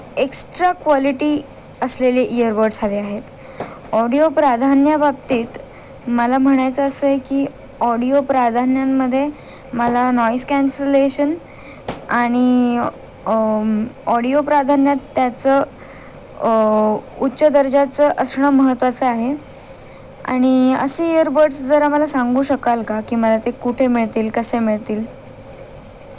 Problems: none marked